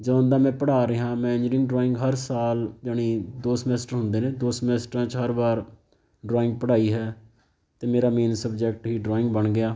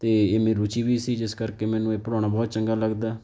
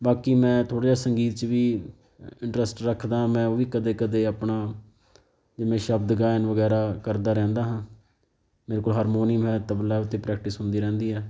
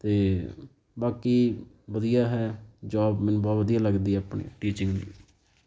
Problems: background sounds at intervals